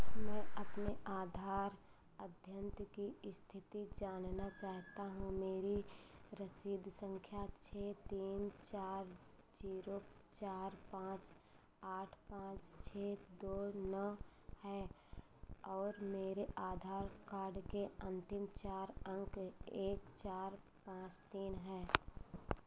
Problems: low volume